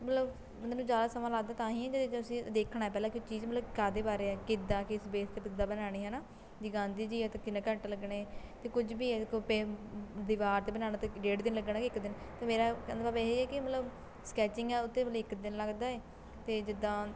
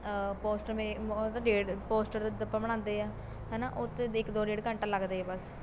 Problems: constant background noise